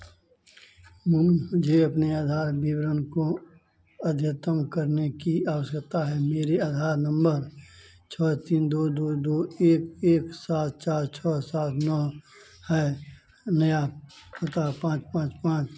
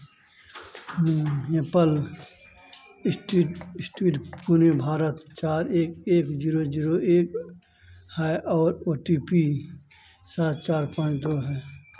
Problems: constant background noise, background conversations at intervals